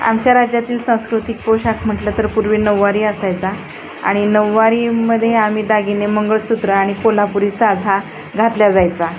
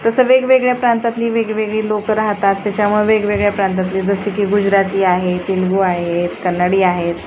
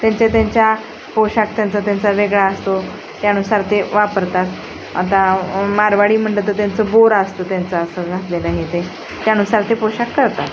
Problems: constant background noise